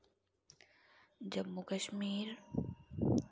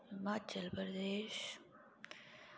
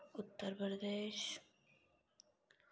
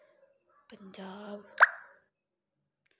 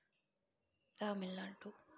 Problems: low volume